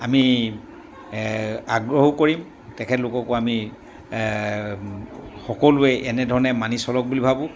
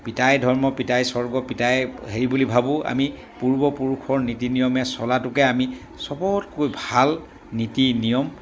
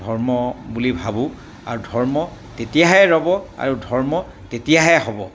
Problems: background sounds at intervals